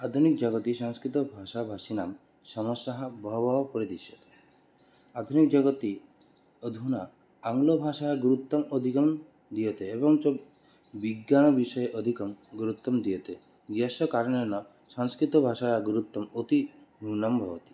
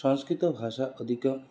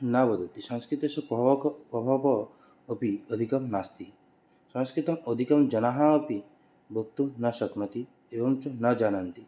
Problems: constant background noise